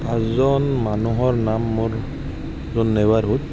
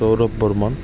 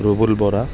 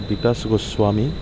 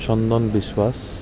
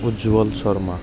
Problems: none marked